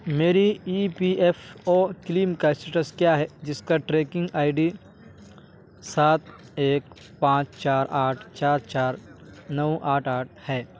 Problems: constant background noise